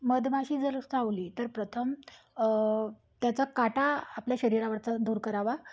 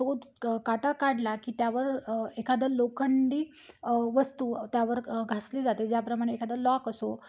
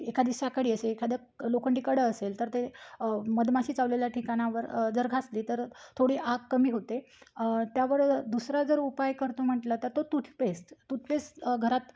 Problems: background sounds at intervals